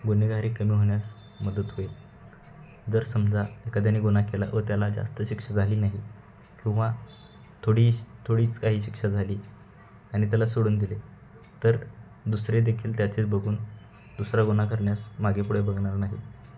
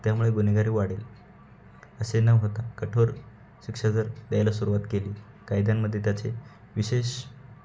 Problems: constant background noise, background conversations at intervals